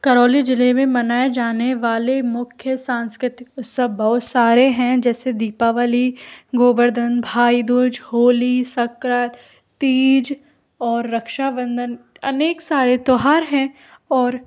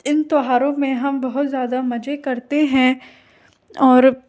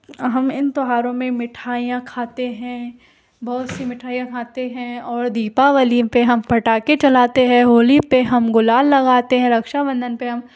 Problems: background sounds at intervals